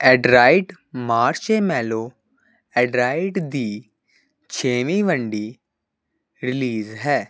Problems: constant background noise